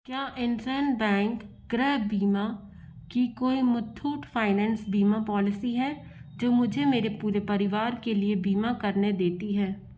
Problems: constant background noise